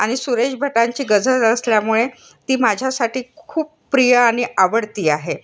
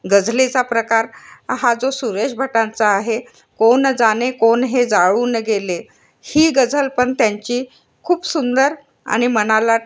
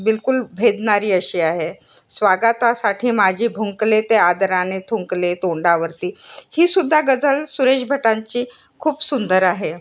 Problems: constant background noise